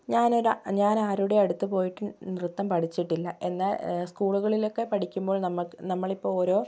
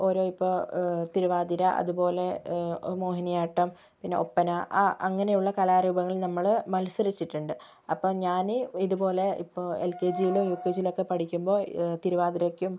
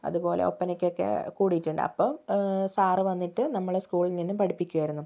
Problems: low volume